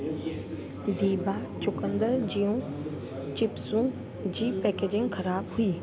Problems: constant background noise